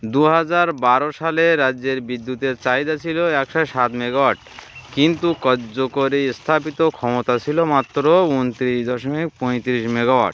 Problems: constant background noise